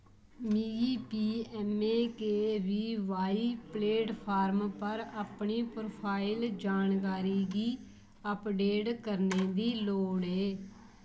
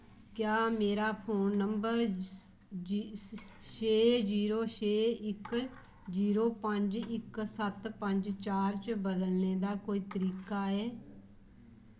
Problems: low volume